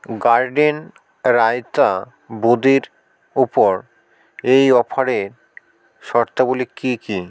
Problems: background sounds at intervals